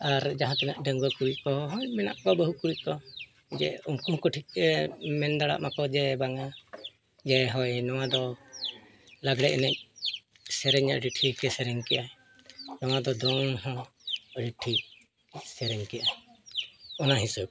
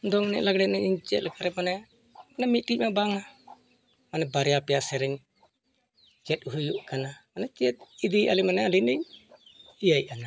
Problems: background conversations at intervals